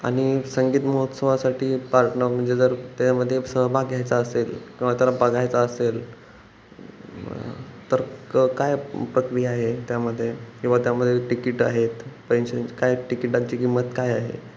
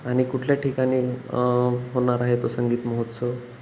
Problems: constant background noise, background conversations at intervals